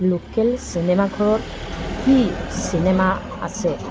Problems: constant background noise